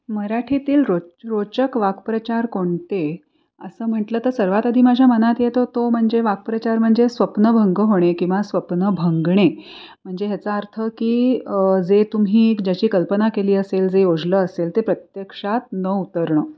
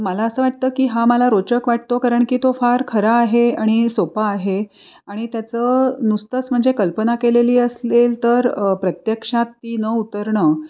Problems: none marked